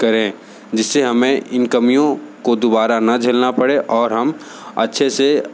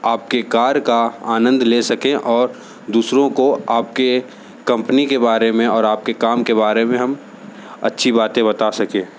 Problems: constant background noise